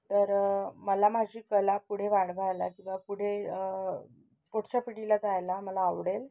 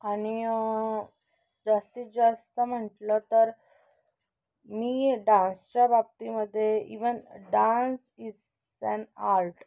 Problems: none marked